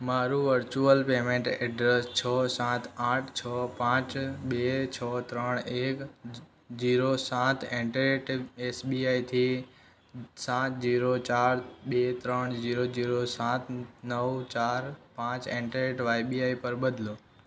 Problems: background sounds at intervals